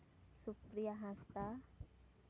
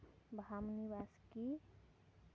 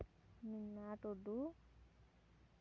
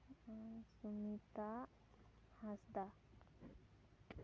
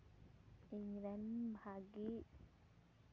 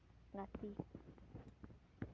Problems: none marked